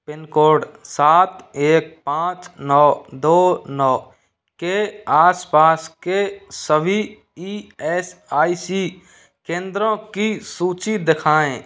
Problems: constant background noise